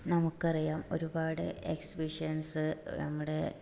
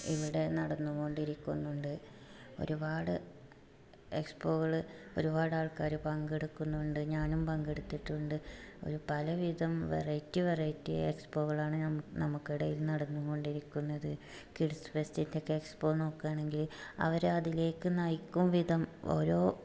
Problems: background sounds at intervals, low volume